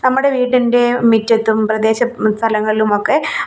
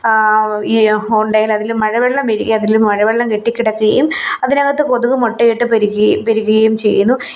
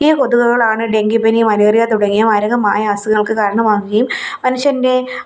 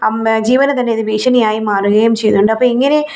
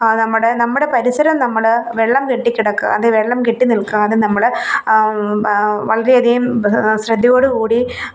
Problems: none marked